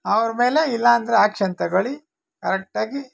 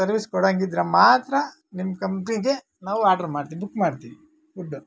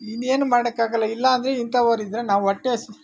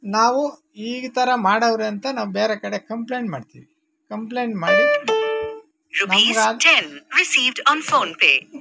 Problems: background sounds at intervals